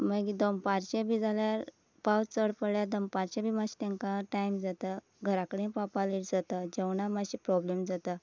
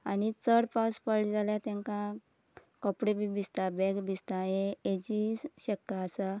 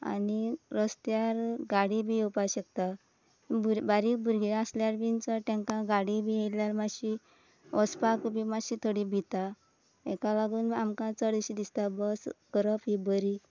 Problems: none marked